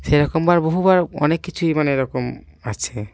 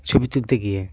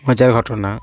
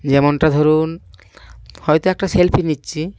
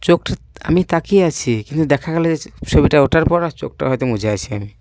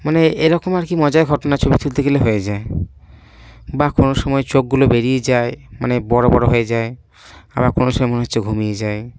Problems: background sounds at intervals